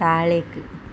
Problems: constant background noise